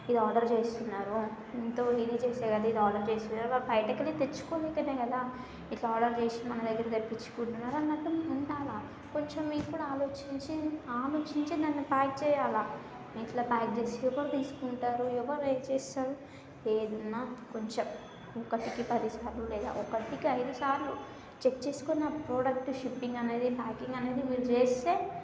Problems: constant background noise, continuous background conversations